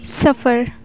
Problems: constant background noise